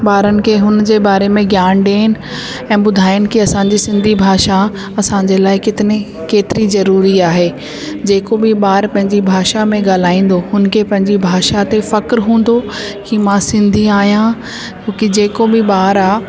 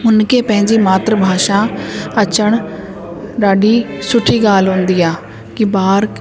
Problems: constant background noise, echo